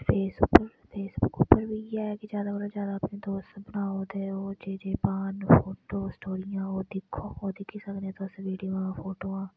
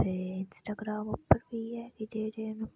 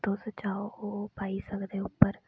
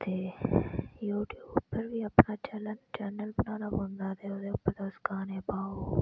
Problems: low volume